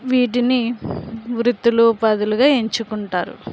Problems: none marked